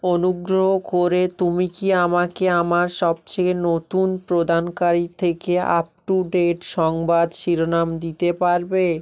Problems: constant background noise